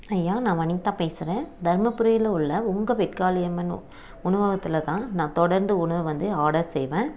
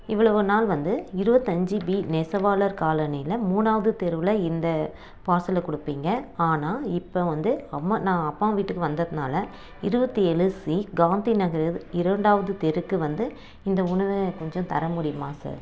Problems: background sounds at intervals